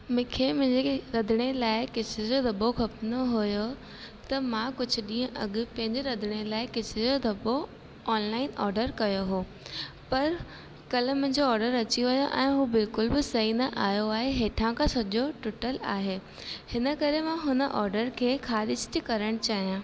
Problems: constant background noise, echo